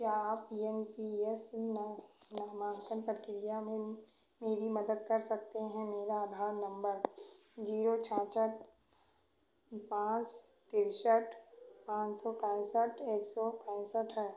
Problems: none marked